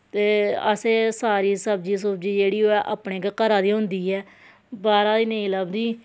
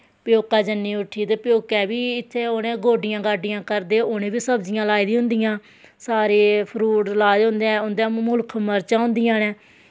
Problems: none marked